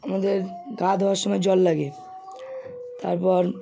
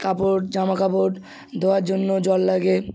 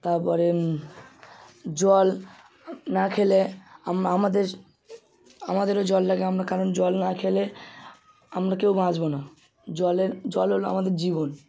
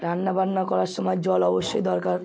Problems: none marked